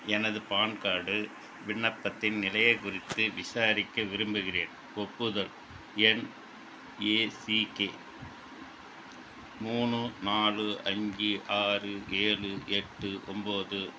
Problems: constant background noise